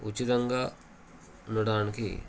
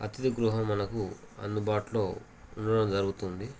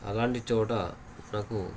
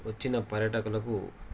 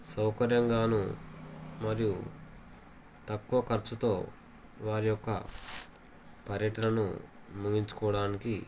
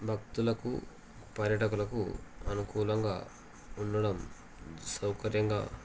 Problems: constant background noise